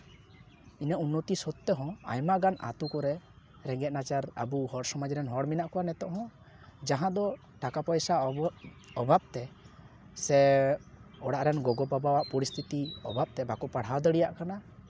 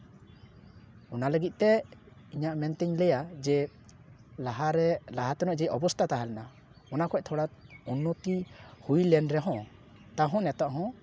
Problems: background sounds at intervals